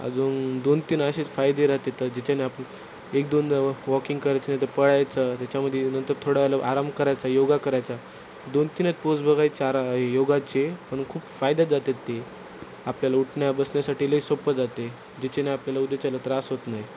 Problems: constant background noise